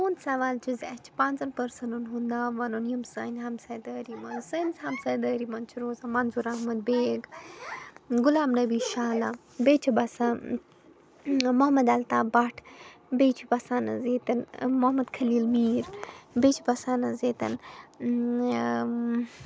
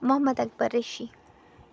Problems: constant background noise